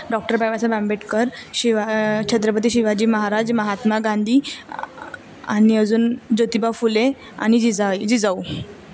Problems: constant background noise